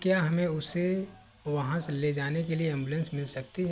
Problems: background sounds at intervals